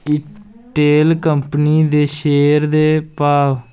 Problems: constant background noise